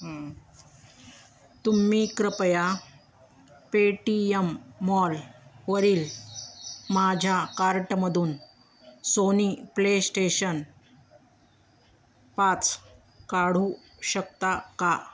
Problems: constant background noise